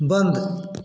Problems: constant background noise, echo